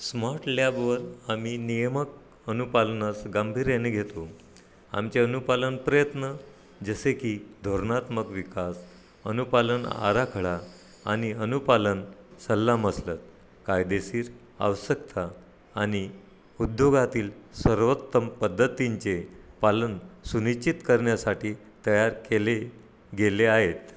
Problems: none marked